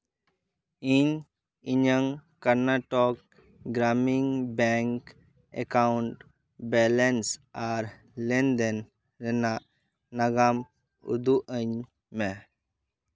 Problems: none marked